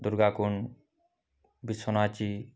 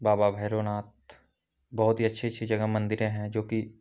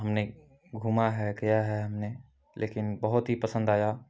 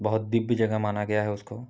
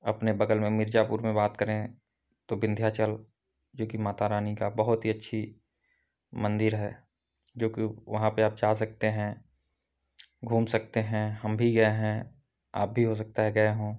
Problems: background sounds at intervals